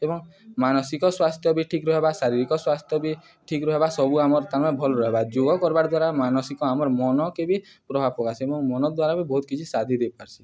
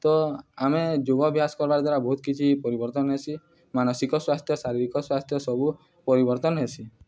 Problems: none marked